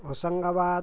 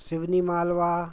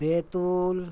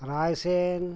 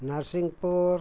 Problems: constant background noise, background conversations at intervals